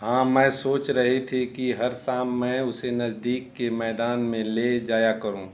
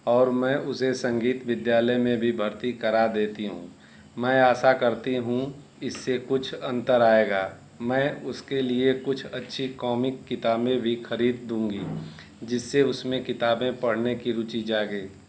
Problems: none marked